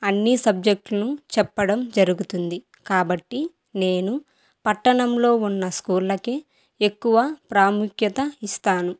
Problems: none marked